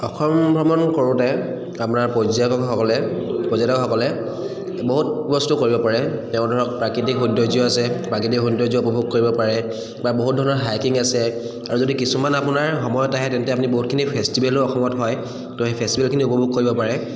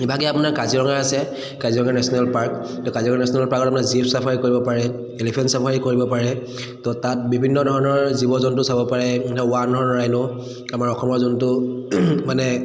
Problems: echo